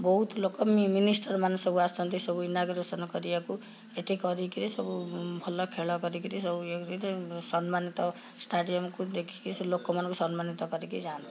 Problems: background conversations at intervals